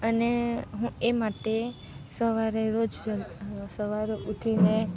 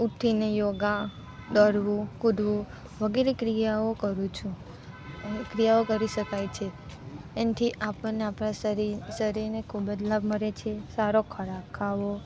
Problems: none marked